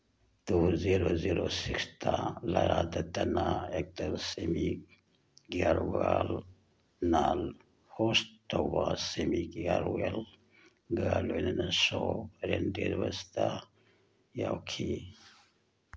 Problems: background sounds at intervals